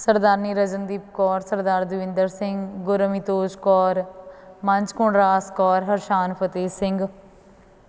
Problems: background sounds at intervals